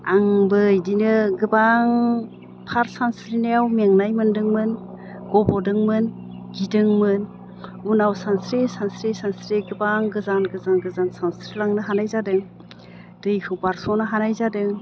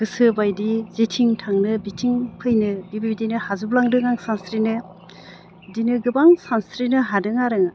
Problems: none marked